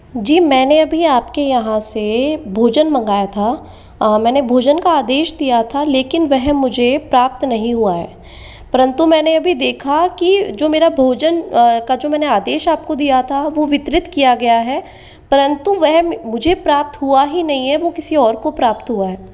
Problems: constant background noise, echo